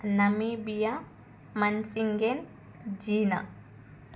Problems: none marked